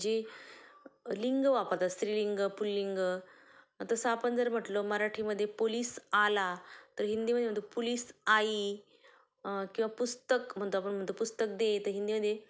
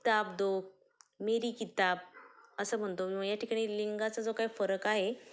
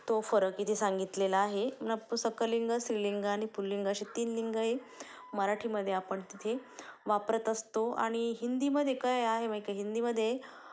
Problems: low volume